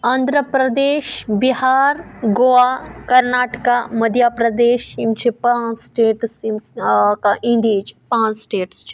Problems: none marked